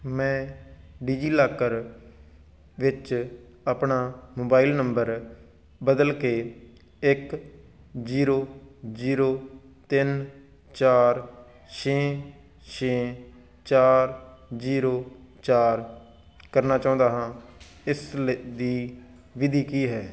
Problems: background sounds at intervals